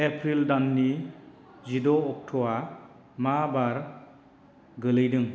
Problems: constant background noise